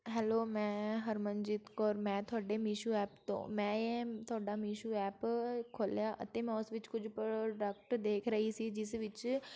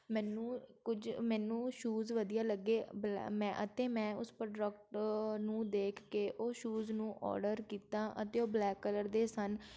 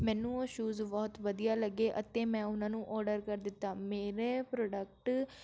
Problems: constant background noise